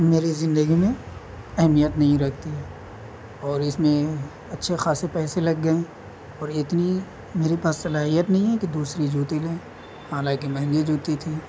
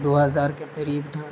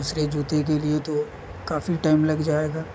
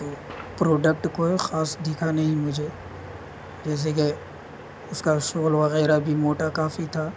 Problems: constant background noise